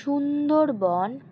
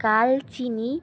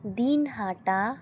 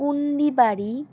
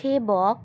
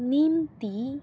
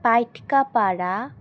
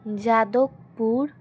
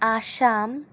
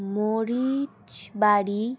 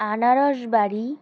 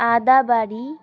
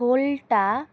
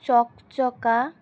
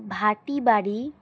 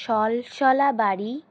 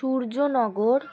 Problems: constant background noise